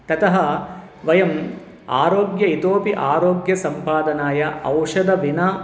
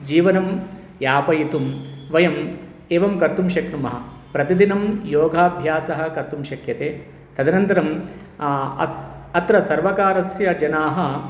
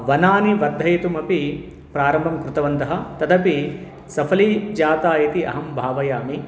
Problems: background sounds at intervals